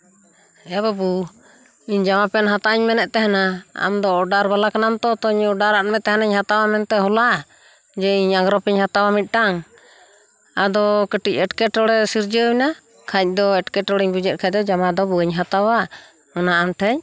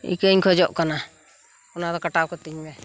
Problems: none marked